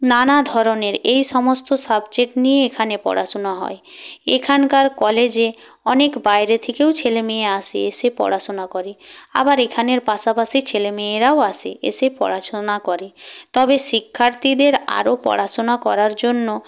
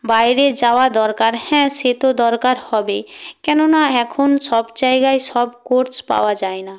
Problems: none marked